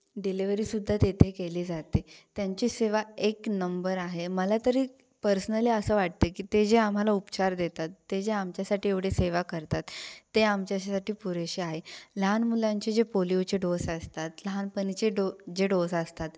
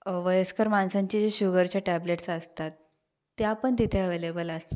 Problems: background sounds at intervals